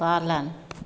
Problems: none marked